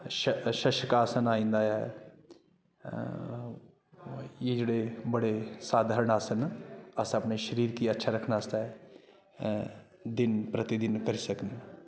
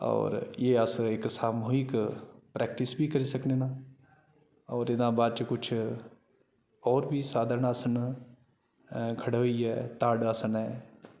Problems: constant background noise